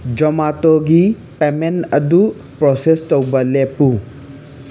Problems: constant background noise